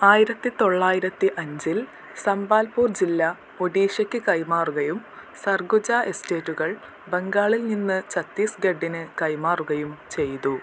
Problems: constant background noise, low volume